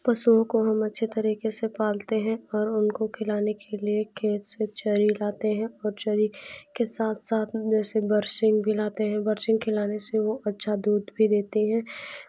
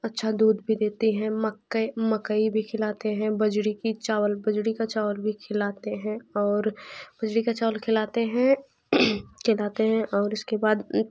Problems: background sounds at intervals, background conversations at intervals